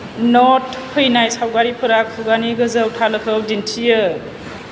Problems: constant background noise